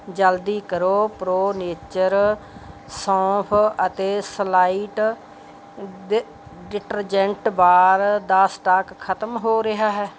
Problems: none marked